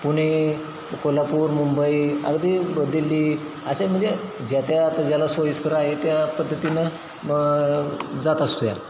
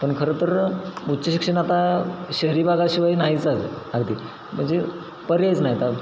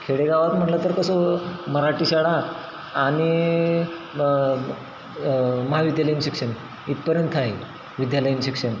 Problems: constant background noise